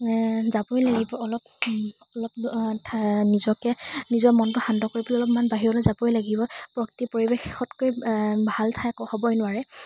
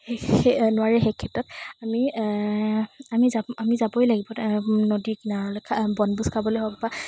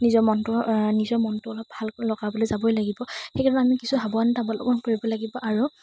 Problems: constant background noise